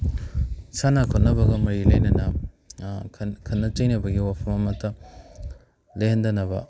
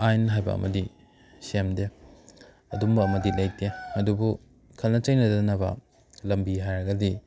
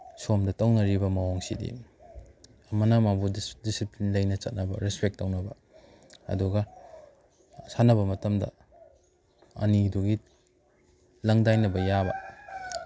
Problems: background sounds at intervals